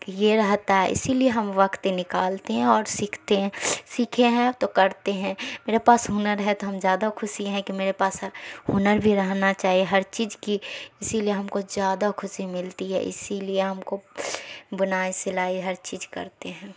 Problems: none marked